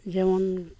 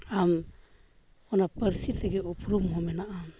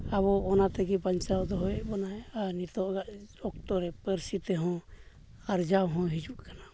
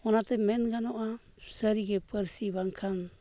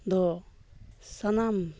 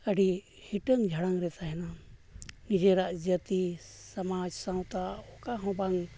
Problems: none marked